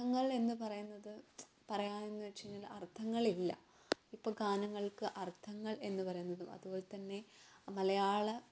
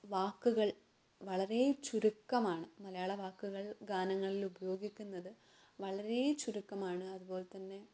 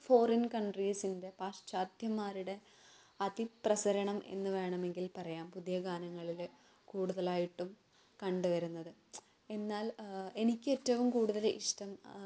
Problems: low volume